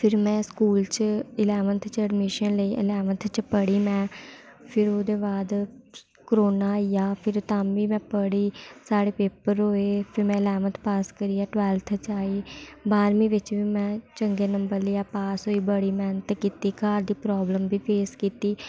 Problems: background sounds at intervals